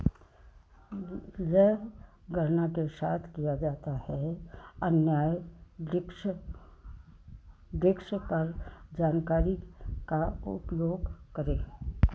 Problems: constant background noise, low volume